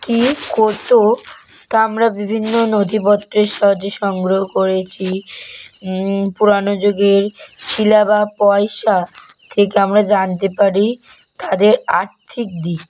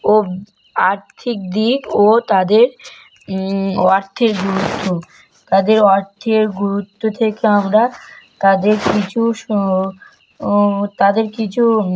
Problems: constant background noise